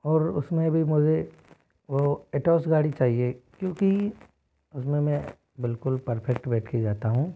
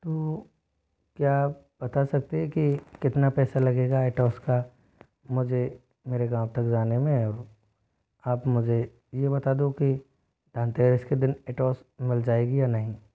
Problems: background sounds at intervals